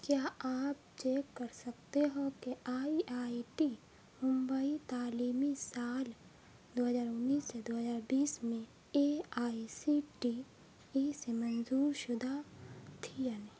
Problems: constant background noise, low volume